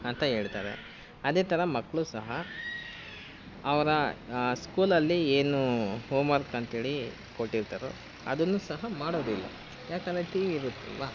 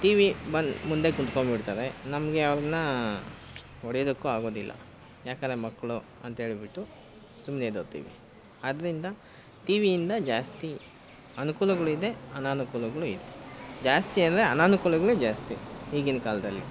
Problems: constant background noise